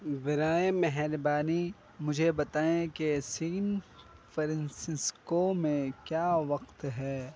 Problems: background sounds at intervals